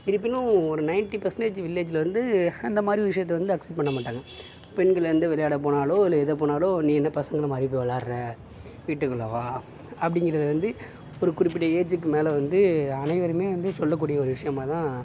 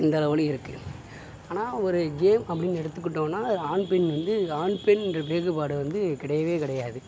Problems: none marked